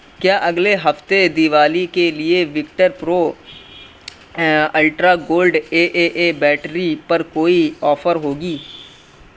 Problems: constant background noise